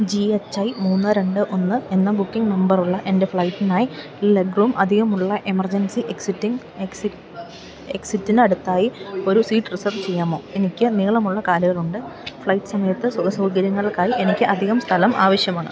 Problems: background sounds at intervals